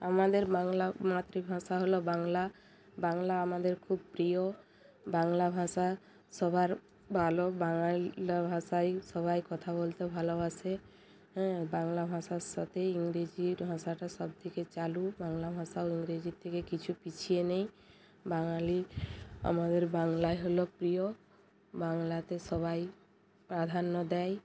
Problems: none marked